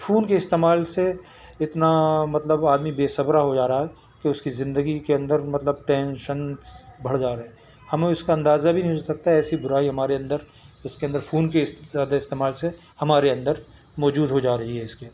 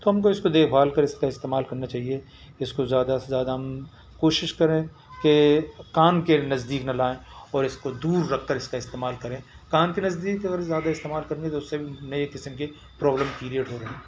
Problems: constant background noise, background conversations at intervals